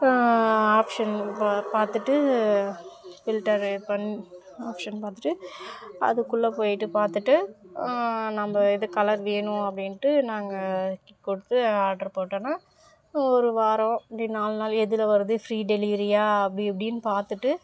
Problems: background sounds at intervals, background conversations at intervals